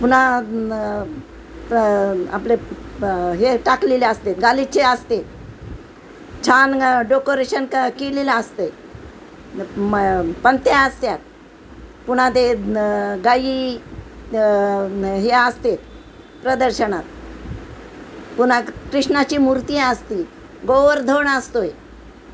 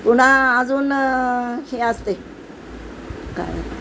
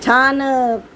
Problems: constant background noise